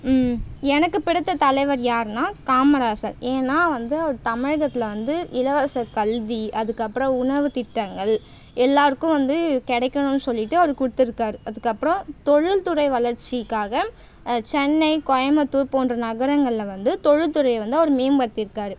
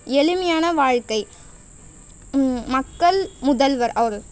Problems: constant background noise